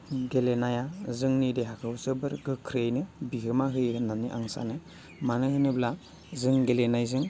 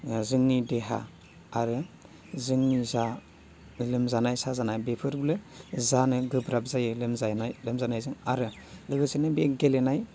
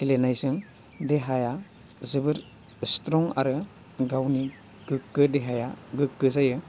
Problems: none marked